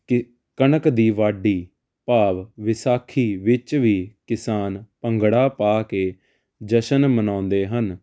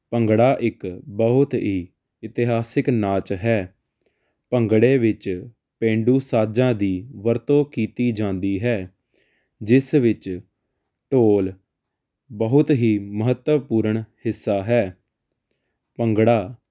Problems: constant background noise